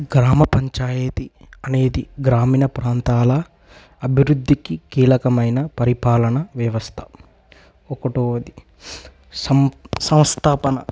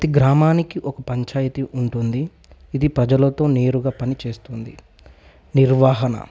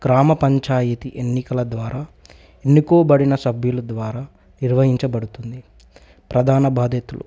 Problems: none marked